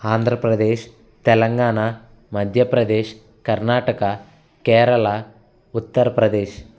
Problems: constant background noise